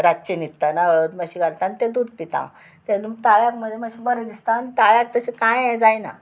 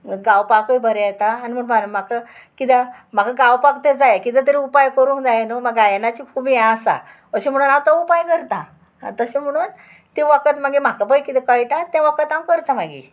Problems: constant background noise